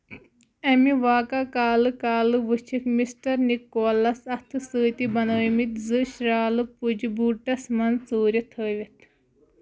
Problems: none marked